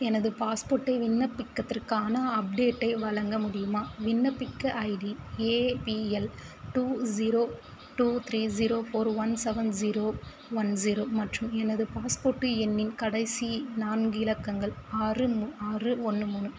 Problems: constant background noise